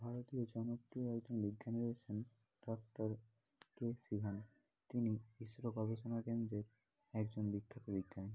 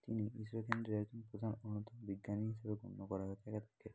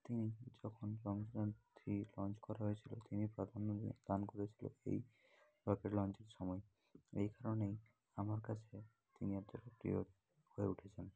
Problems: constant background noise, low volume